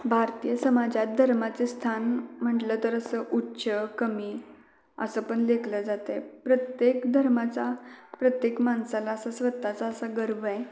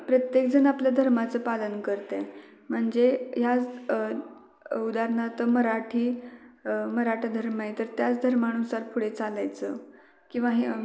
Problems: background sounds at intervals, background conversations at intervals, echo